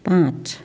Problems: background sounds at intervals